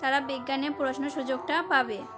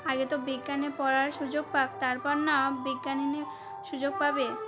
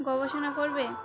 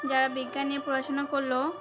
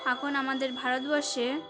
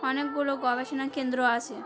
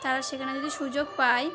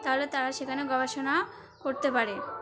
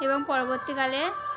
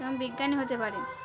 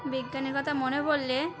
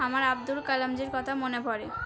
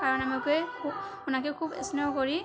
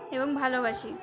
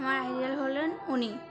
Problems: continuous background conversations